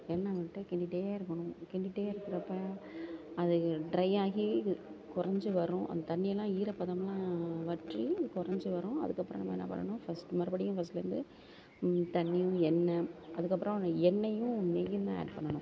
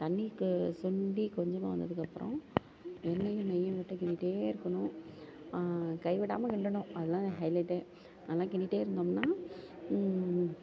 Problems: constant background noise